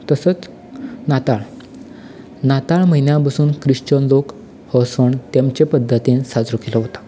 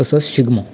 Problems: none marked